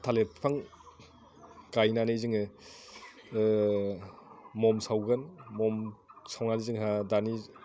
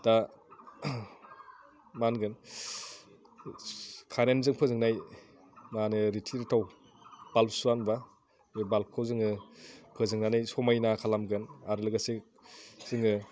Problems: none marked